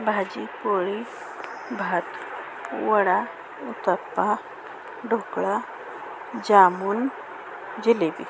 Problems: constant background noise, background conversations at intervals